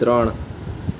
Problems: constant background noise